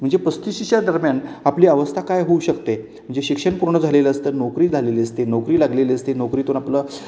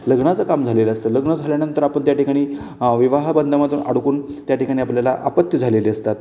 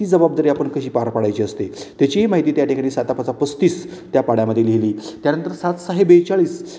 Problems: none marked